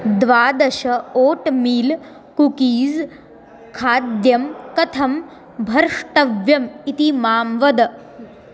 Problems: background conversations at intervals